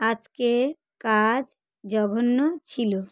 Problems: none marked